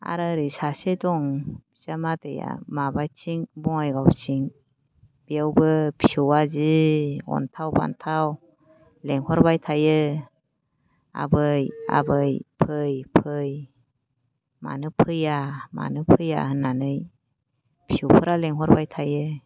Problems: low volume